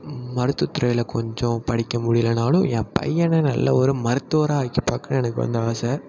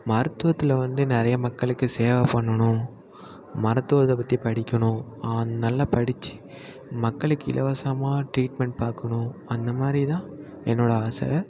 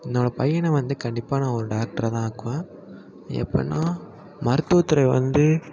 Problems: constant background noise